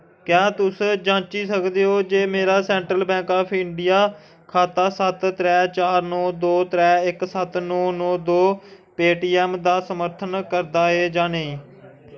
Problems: none marked